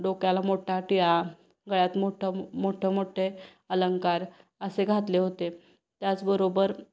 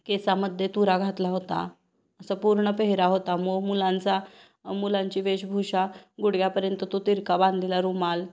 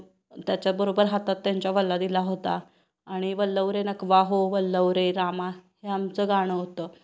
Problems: none marked